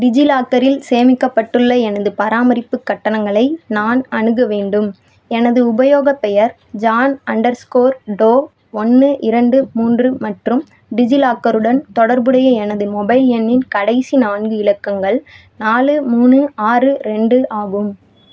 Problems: none marked